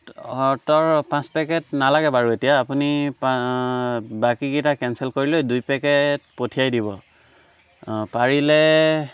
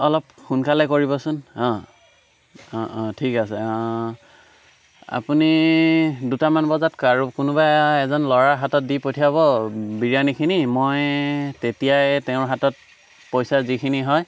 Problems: background sounds at intervals